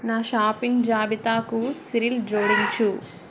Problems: background sounds at intervals